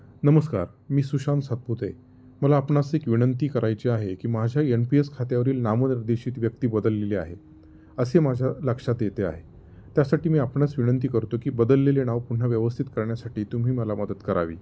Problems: none marked